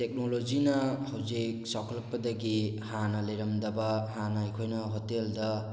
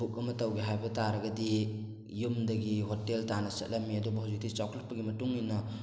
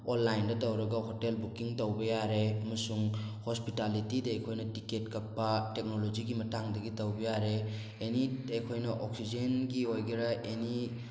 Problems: none marked